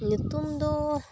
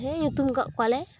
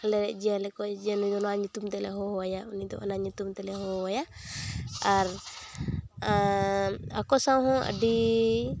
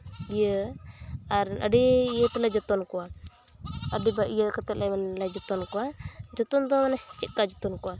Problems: constant background noise